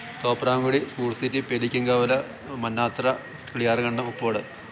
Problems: constant background noise